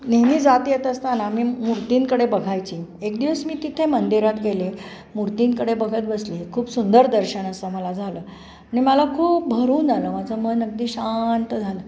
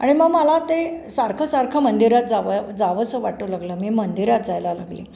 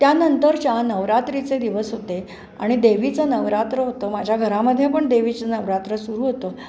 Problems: constant background noise